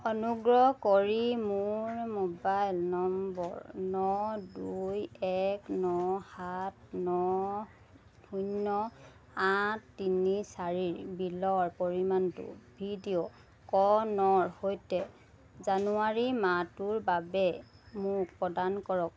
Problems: none marked